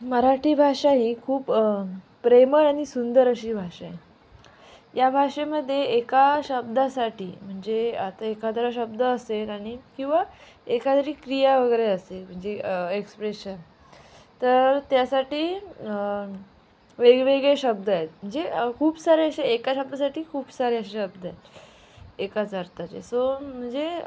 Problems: constant background noise, background conversations at intervals